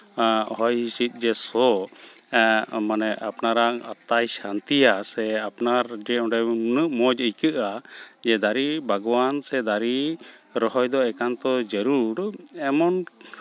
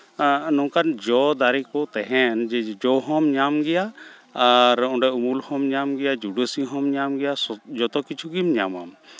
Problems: none marked